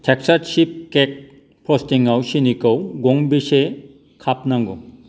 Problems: none marked